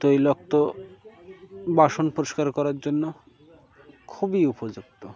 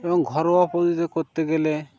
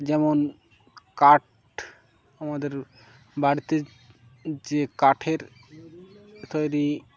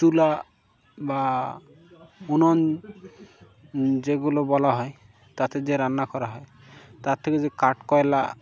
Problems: background sounds at intervals